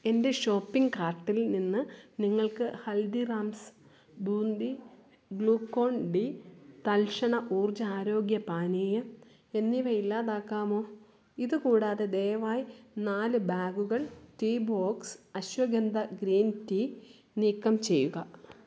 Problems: none marked